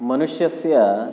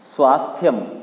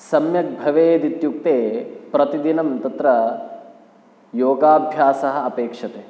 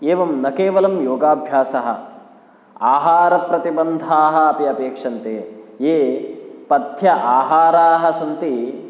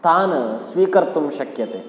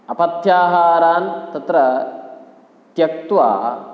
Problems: none marked